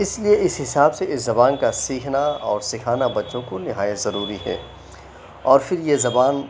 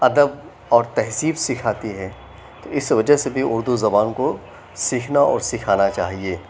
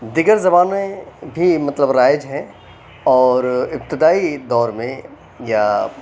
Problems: none marked